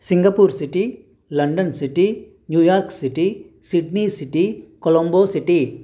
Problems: constant background noise